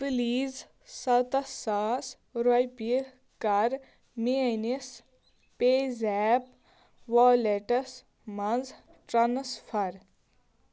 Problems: none marked